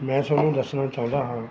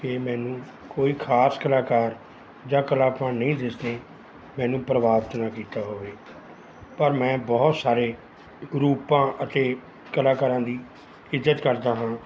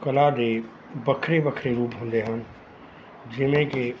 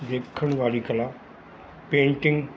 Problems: none marked